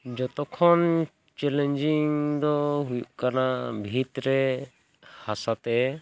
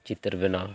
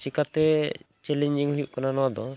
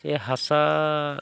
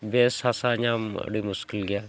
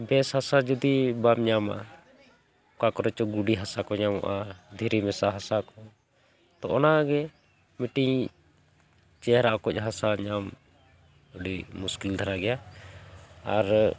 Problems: none marked